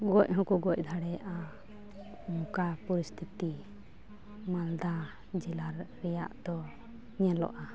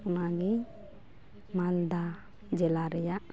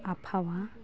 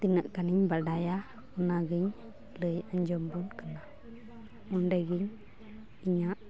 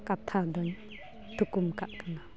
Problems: background sounds at intervals